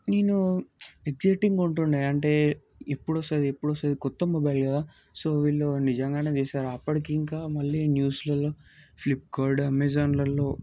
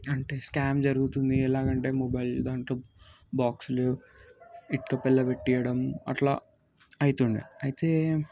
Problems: background sounds at intervals